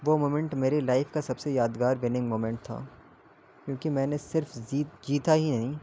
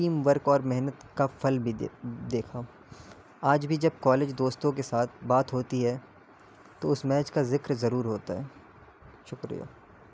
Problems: constant background noise, low volume